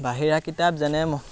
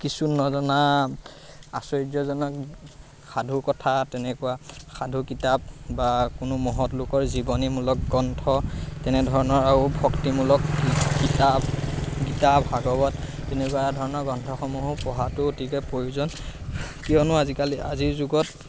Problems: constant background noise